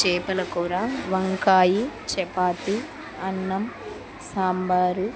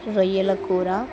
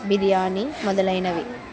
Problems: constant background noise, background conversations at intervals